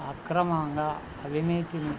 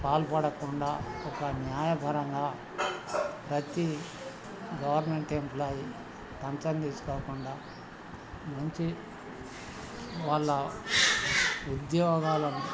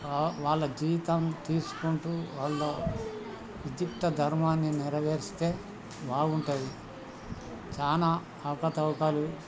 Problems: constant background noise, continuous background conversations